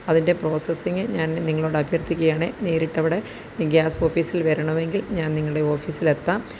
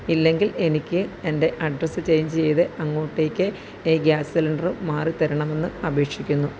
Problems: none marked